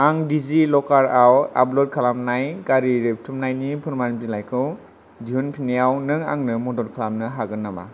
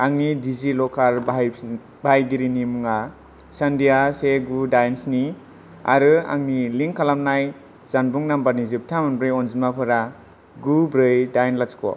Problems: none marked